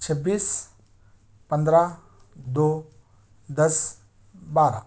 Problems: none marked